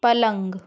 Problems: background sounds at intervals